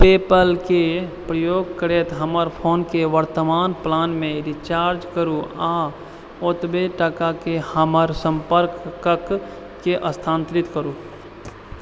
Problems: constant background noise